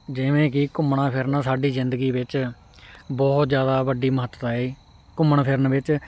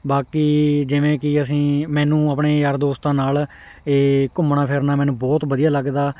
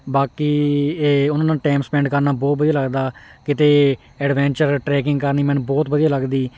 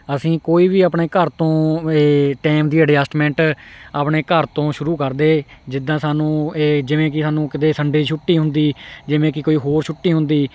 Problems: none marked